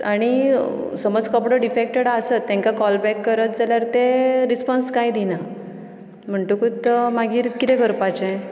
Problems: none marked